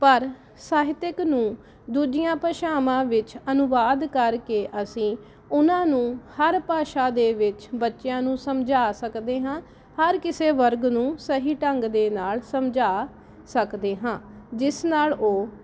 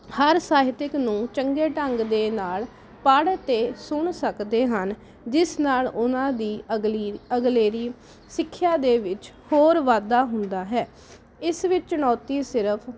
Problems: none marked